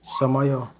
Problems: constant background noise